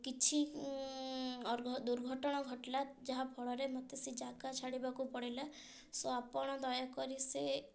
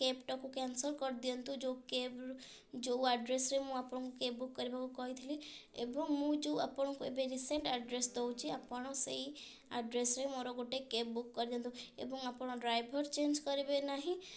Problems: none marked